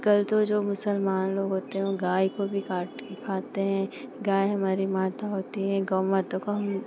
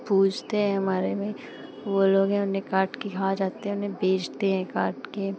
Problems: constant background noise